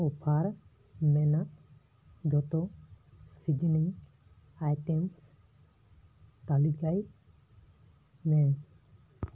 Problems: background sounds at intervals